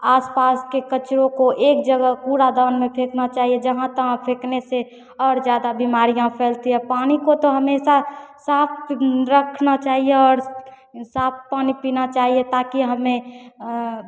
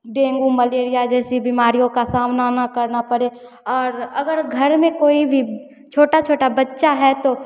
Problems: none marked